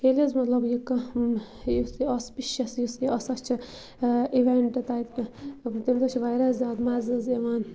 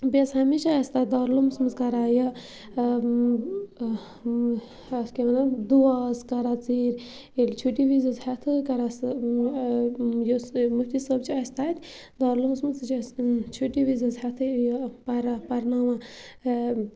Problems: constant background noise